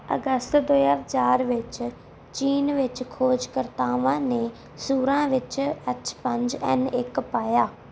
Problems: background sounds at intervals